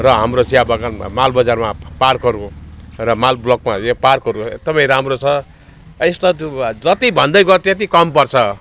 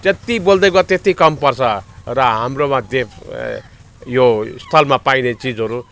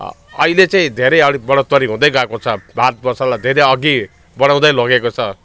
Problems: constant background noise, background conversations at intervals